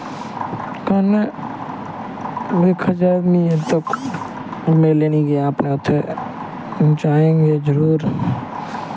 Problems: constant background noise, low volume